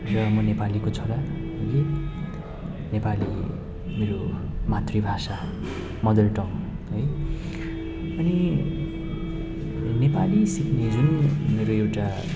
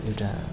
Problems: none marked